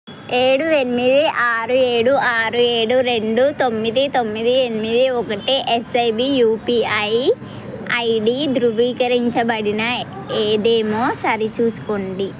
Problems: constant background noise